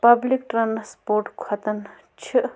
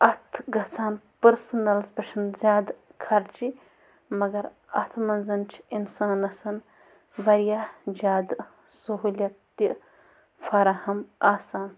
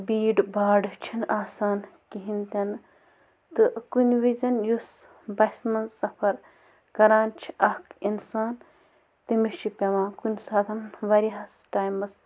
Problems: constant background noise